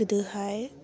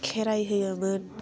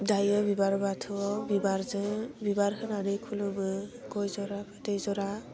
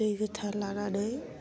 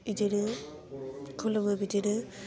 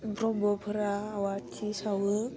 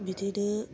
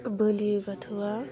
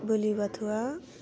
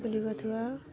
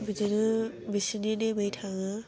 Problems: constant background noise